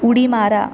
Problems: none marked